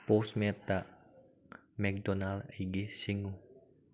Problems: low volume